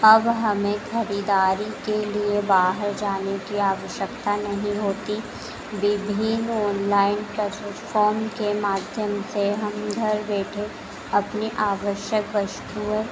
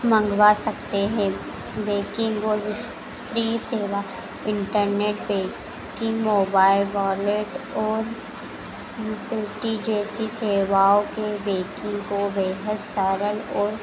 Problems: none marked